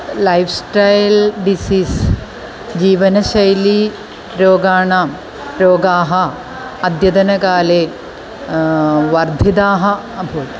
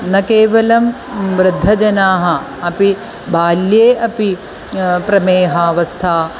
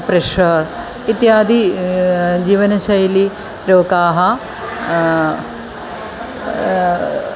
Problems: constant background noise